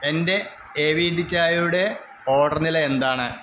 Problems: constant background noise